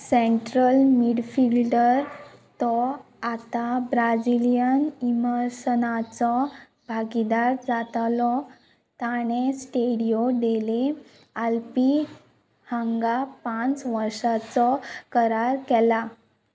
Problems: constant background noise